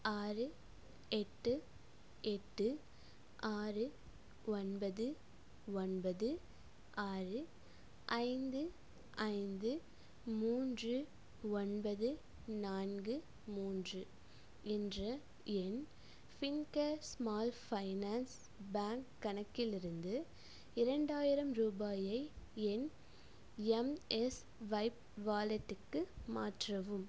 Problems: low volume